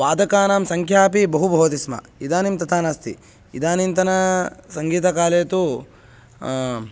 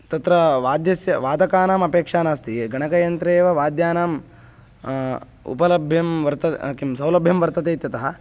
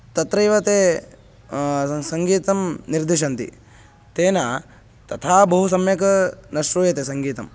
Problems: constant background noise